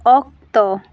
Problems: constant background noise